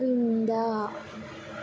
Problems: background sounds at intervals